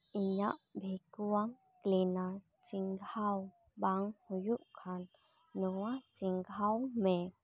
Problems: none marked